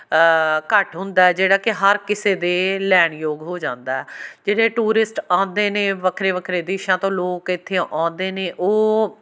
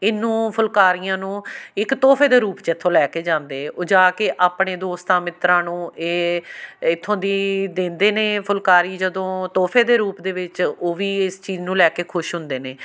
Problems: background sounds at intervals